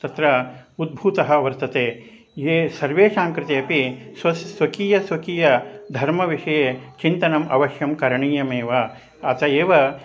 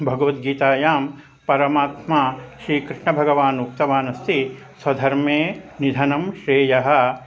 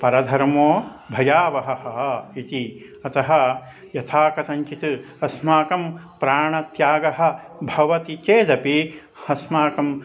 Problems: constant background noise